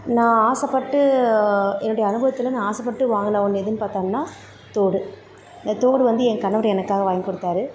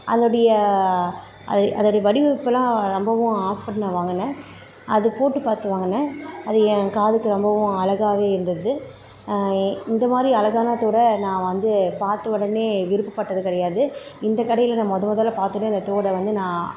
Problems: constant background noise